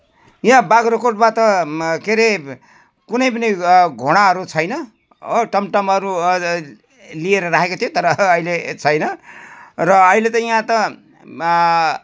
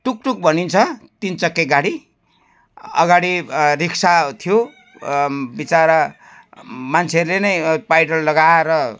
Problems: constant background noise